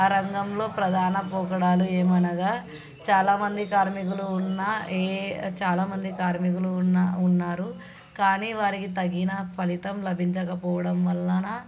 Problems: constant background noise, background conversations at intervals